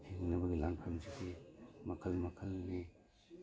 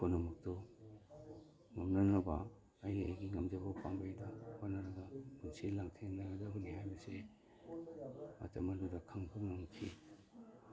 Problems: background sounds at intervals, background conversations at intervals